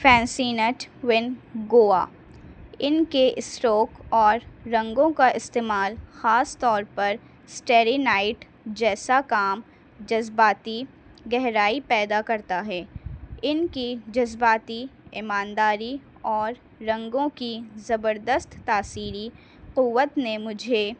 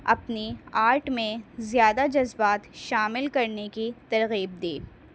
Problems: constant background noise